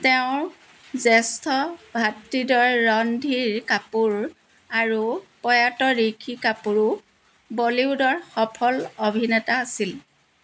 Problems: constant background noise